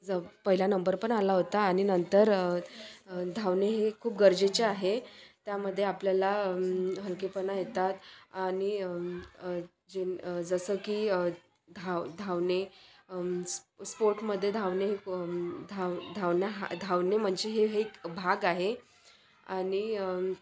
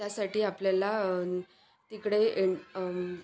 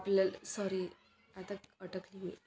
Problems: none marked